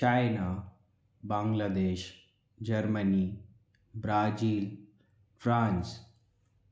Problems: low volume